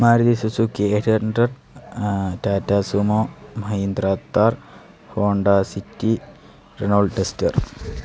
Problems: none marked